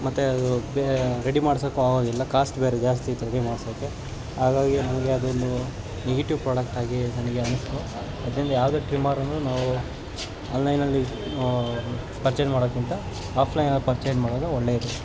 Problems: constant background noise